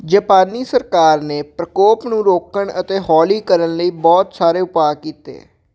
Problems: none marked